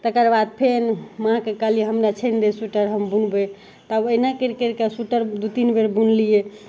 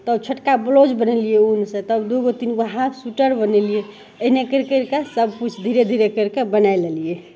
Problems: none marked